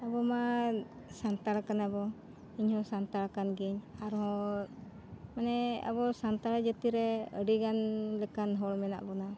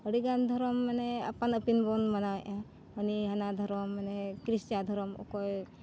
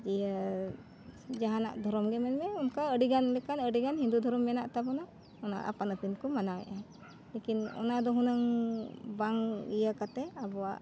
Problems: constant background noise